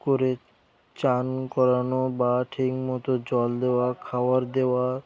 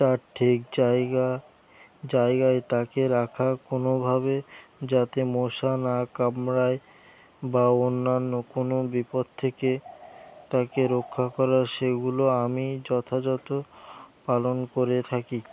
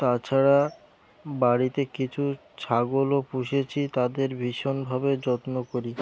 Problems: background sounds at intervals